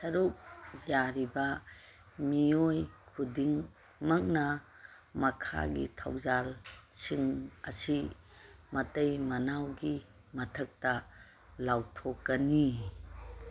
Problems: background sounds at intervals